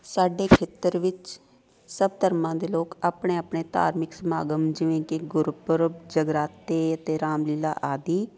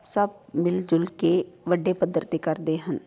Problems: constant background noise